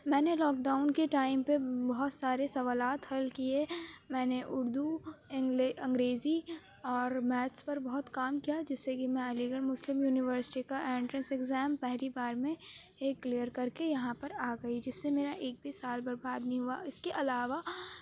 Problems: background sounds at intervals, low volume